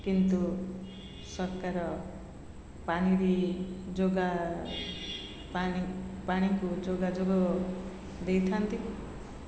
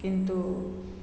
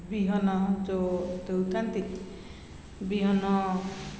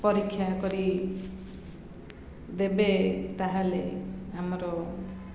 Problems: none marked